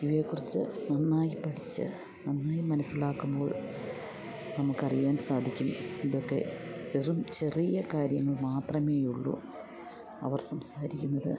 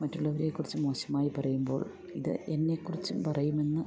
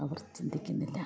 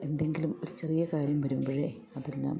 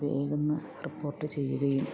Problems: none marked